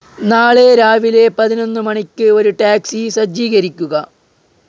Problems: background sounds at intervals